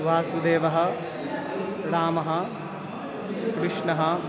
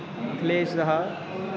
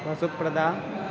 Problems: constant background noise, continuous background conversations